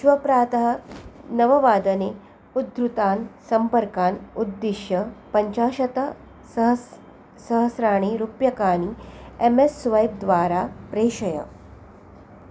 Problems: constant background noise